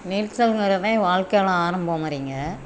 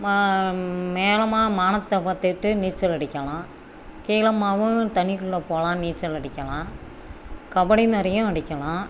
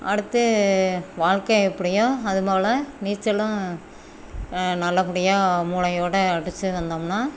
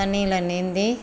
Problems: background sounds at intervals